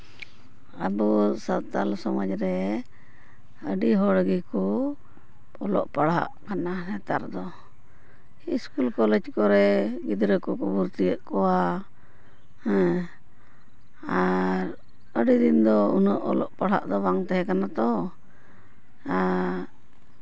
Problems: none marked